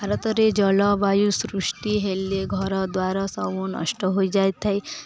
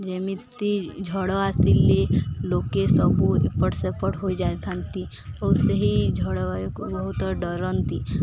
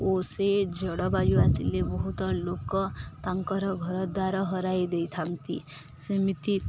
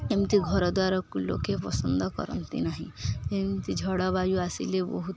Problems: constant background noise, continuous background conversations